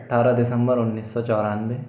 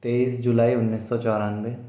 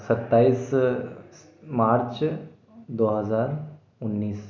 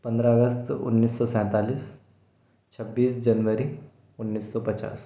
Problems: none marked